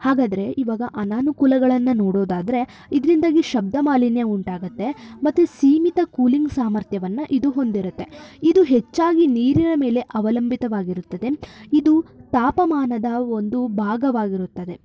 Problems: constant background noise